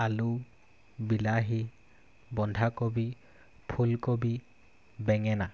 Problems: constant background noise